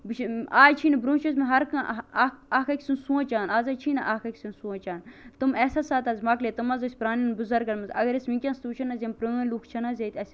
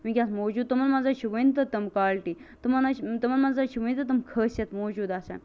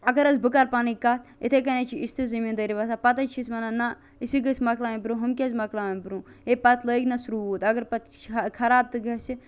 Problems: constant background noise